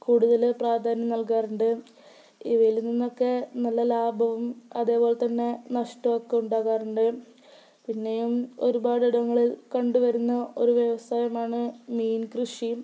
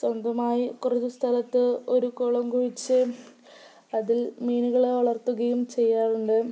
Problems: none marked